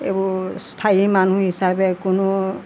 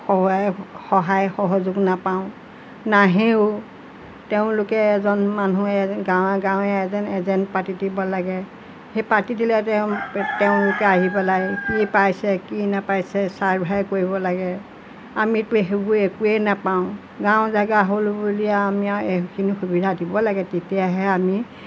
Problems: constant background noise